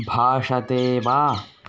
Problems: constant background noise